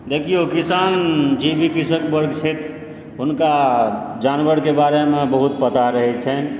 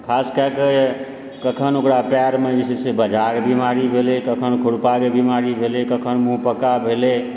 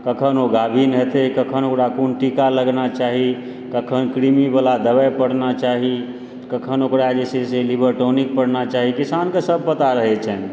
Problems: background sounds at intervals